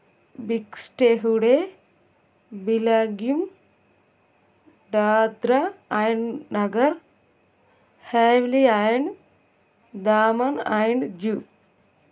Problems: none marked